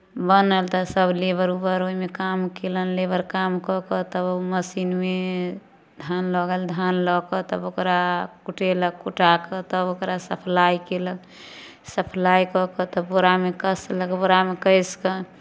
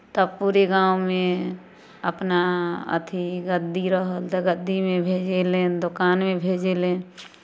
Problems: none marked